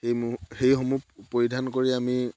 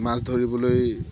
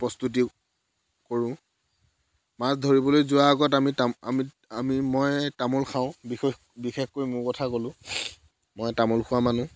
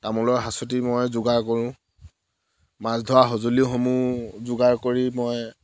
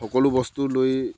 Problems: background sounds at intervals